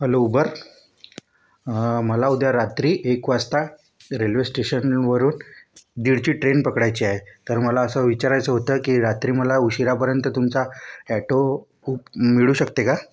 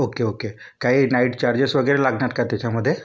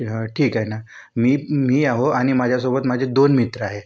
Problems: none marked